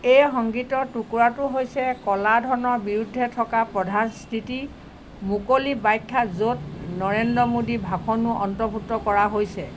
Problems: constant background noise